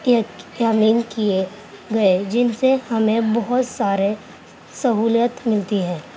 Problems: constant background noise